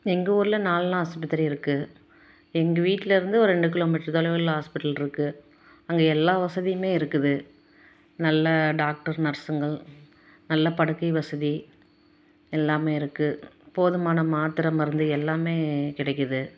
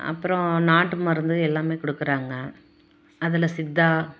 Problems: none marked